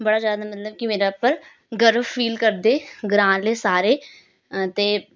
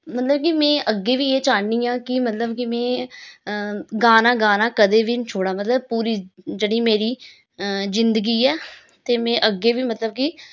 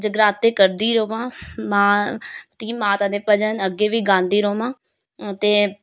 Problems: none marked